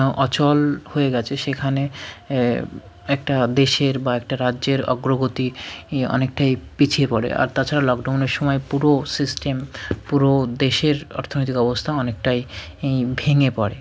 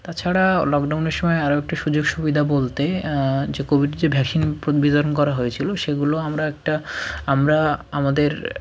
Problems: background sounds at intervals, background conversations at intervals